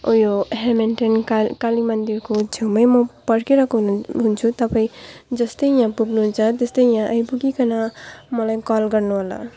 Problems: background sounds at intervals, low volume